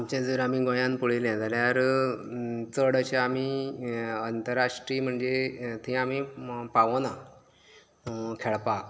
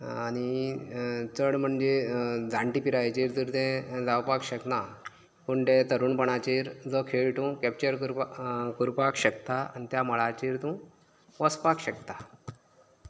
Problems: none marked